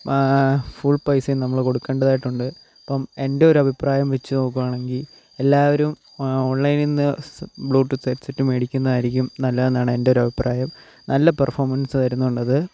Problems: constant background noise, low volume